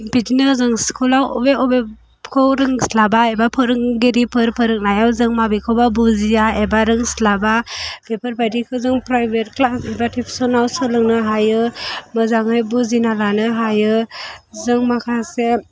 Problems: background sounds at intervals